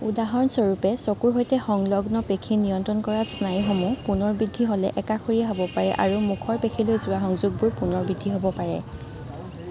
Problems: none marked